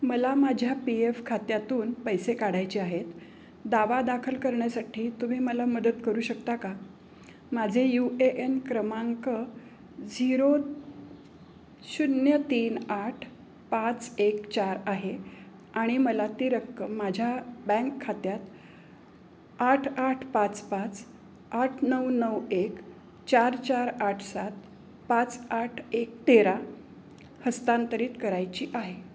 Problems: background sounds at intervals, background conversations at intervals